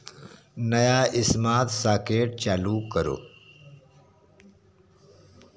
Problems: none marked